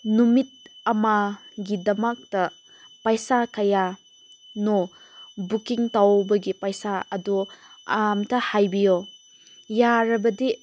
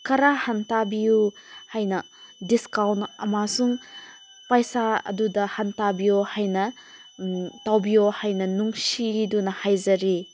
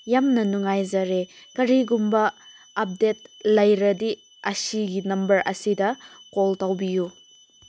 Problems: constant background noise